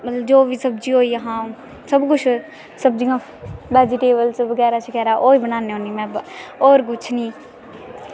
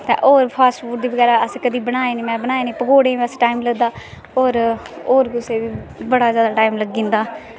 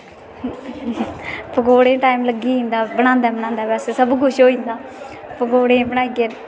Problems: constant background noise